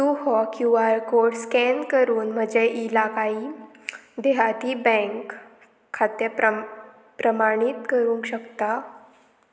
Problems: none marked